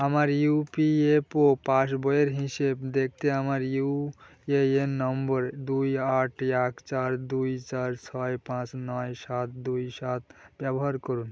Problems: none marked